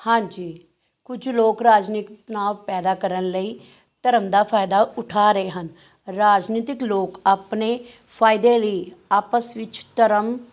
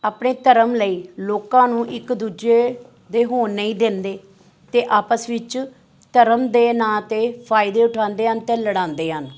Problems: none marked